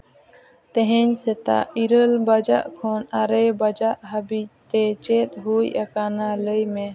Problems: background sounds at intervals, continuous background conversations